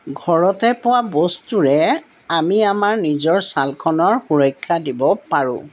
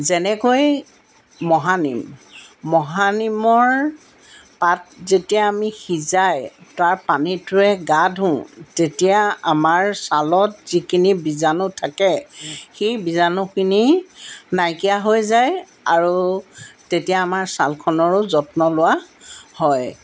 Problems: none marked